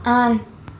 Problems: constant background noise